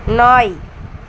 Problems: constant background noise